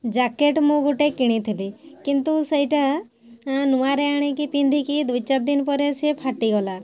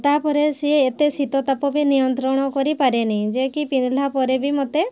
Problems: constant background noise